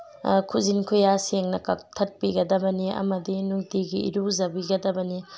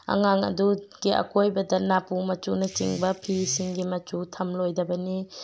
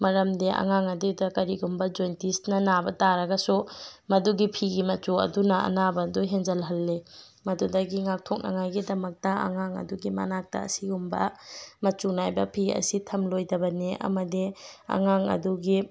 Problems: background sounds at intervals